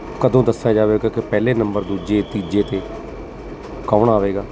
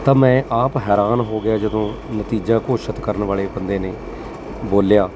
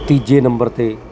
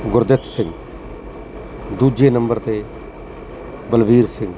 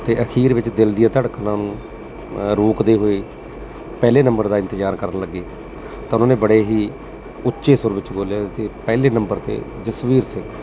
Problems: constant background noise